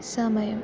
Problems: constant background noise, low volume